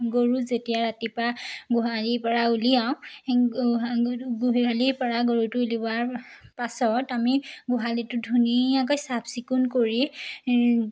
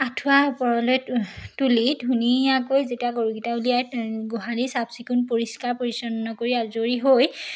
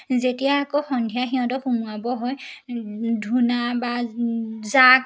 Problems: none marked